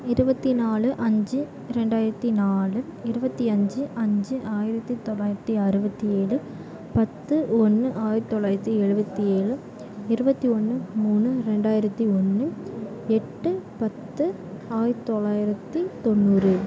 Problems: constant background noise, continuous background conversations